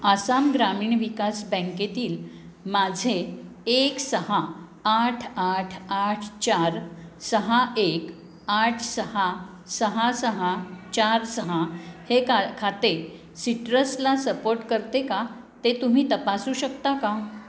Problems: constant background noise, continuous background conversations